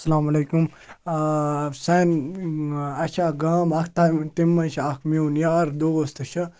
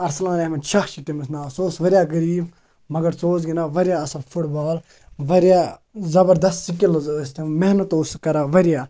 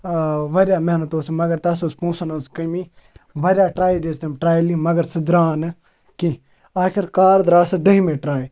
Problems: background sounds at intervals